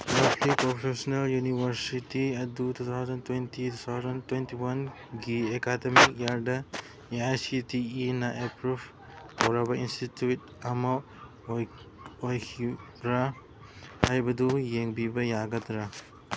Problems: background sounds at intervals